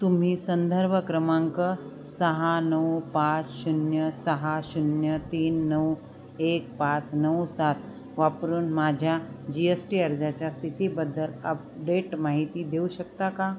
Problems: constant background noise, background conversations at intervals